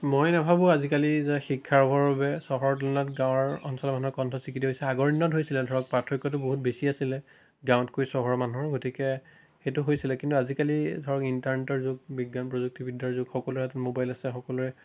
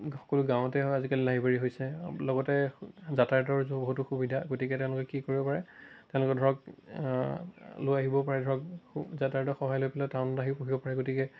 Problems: none marked